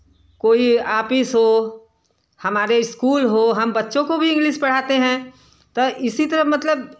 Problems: none marked